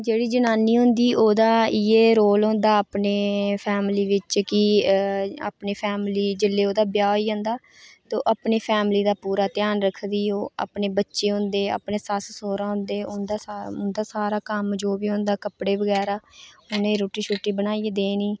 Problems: none marked